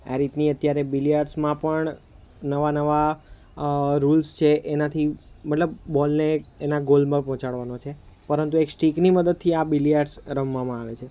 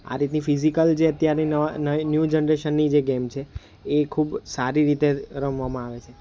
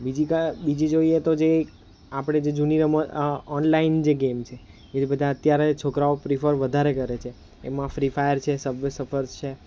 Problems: none marked